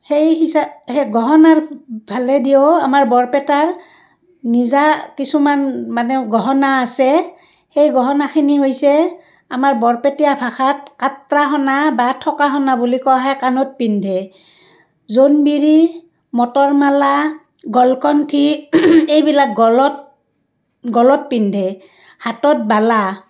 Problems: none marked